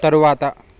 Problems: none marked